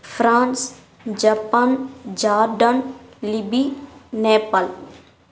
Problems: none marked